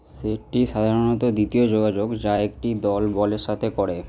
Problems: none marked